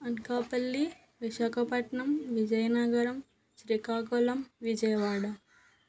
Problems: background sounds at intervals